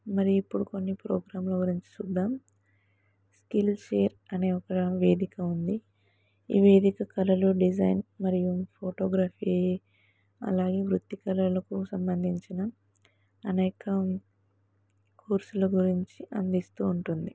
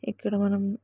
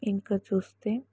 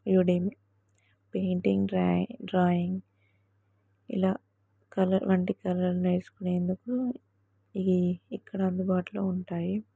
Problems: none marked